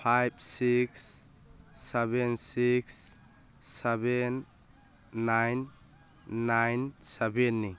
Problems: background sounds at intervals